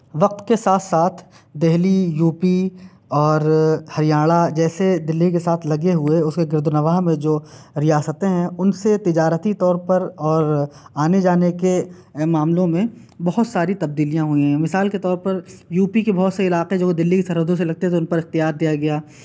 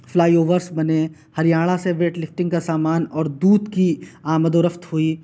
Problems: constant background noise